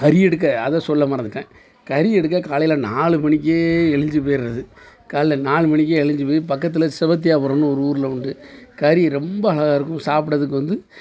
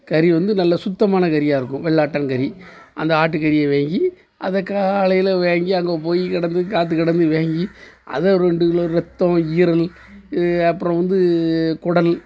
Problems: constant background noise